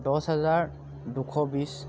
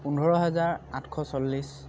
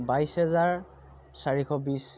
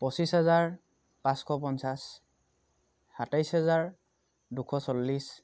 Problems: none marked